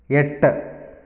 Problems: none marked